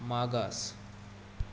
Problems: constant background noise